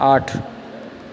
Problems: background conversations at intervals